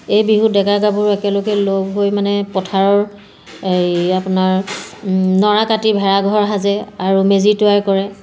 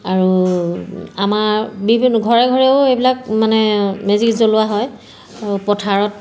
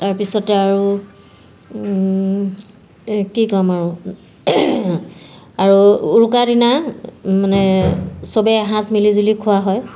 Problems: background sounds at intervals